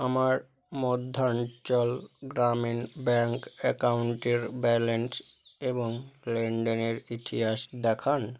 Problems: none marked